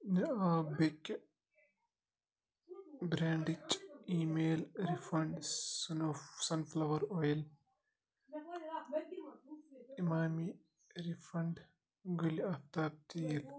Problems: continuous background conversations